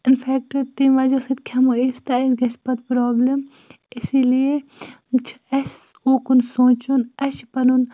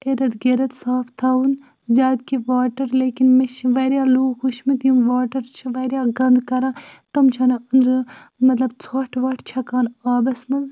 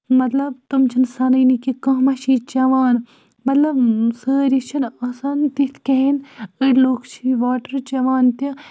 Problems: none marked